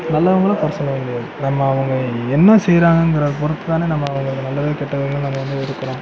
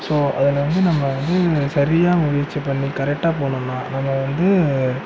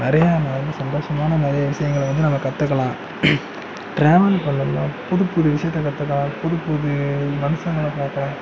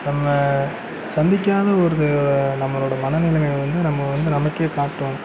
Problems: constant background noise